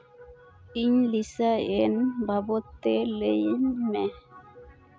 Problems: none marked